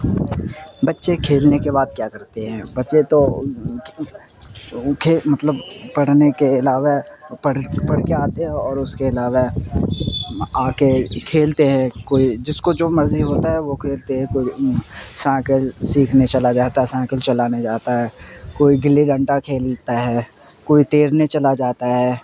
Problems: constant background noise, background conversations at intervals